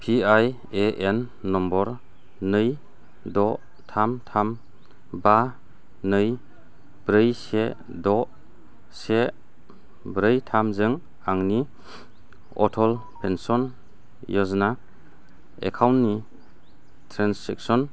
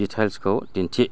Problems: low volume